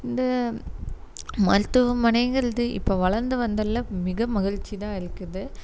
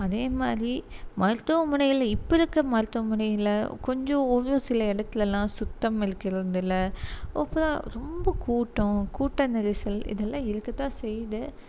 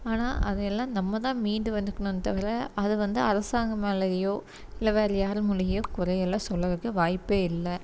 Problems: constant background noise